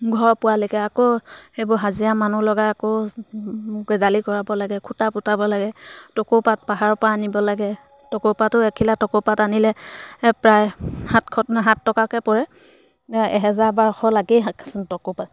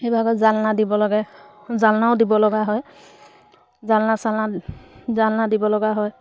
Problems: background sounds at intervals